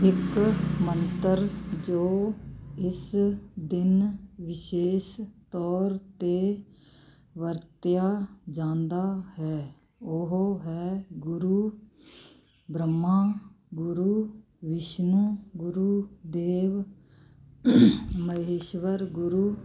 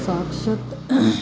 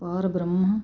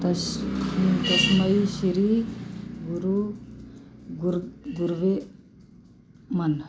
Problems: constant background noise